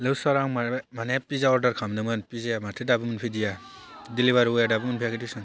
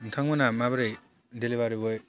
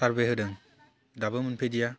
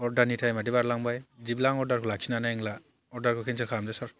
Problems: constant background noise